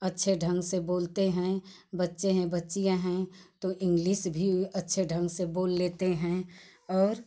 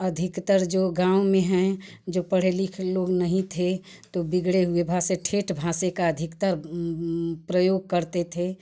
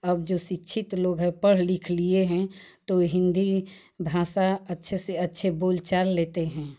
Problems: constant background noise